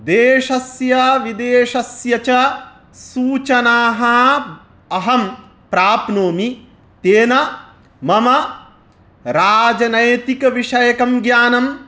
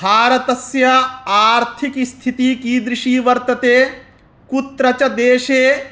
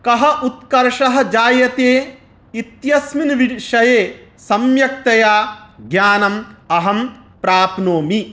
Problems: none marked